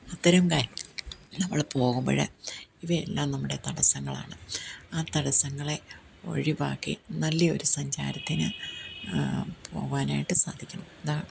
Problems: none marked